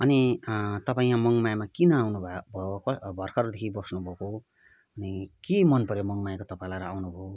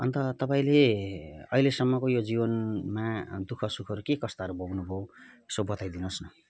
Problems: background conversations at intervals